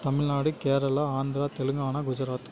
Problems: constant background noise